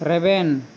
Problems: constant background noise